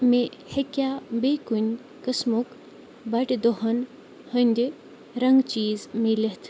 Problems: background sounds at intervals